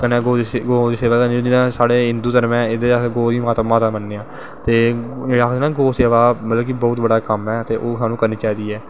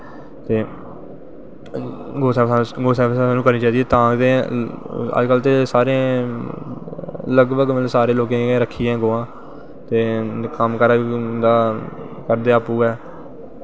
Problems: constant background noise, echo